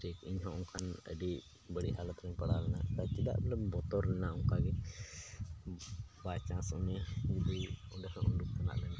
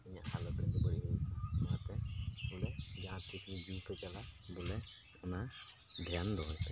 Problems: constant background noise, low volume